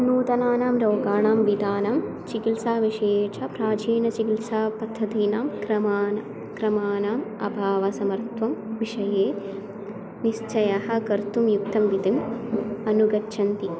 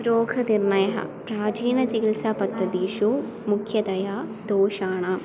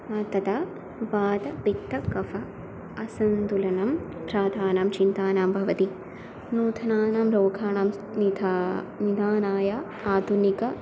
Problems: none marked